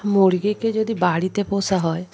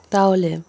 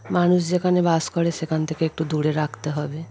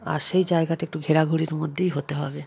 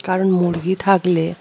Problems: constant background noise, background conversations at intervals